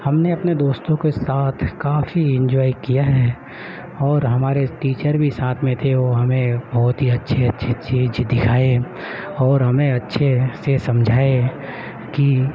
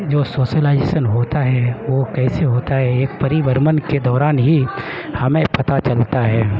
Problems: constant background noise